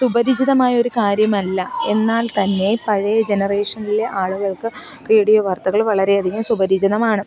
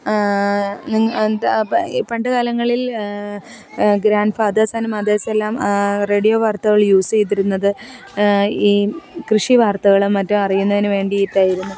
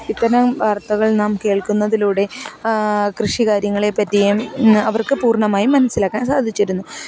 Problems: background conversations at intervals